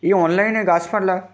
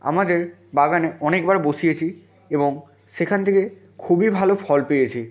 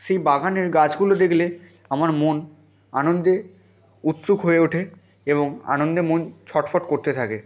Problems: background sounds at intervals